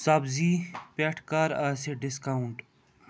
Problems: none marked